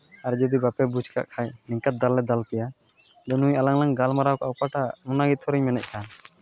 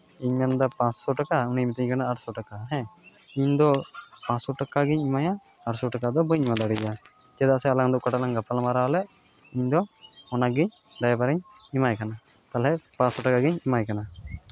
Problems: background sounds at intervals